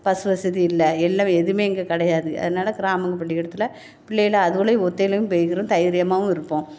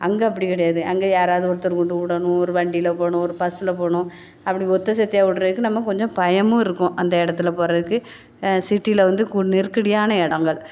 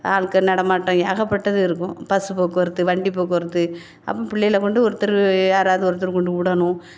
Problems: none marked